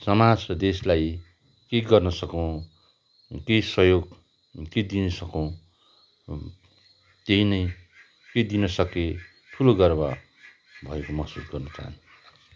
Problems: none marked